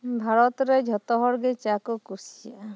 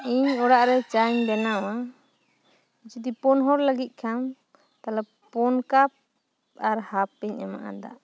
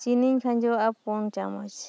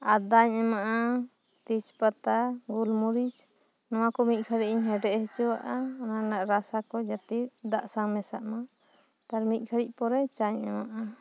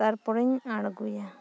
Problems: background sounds at intervals